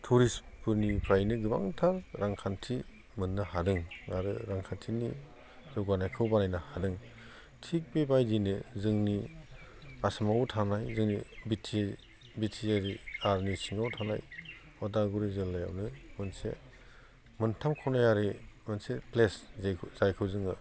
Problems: constant background noise